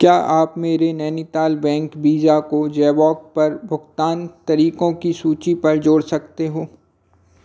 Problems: none marked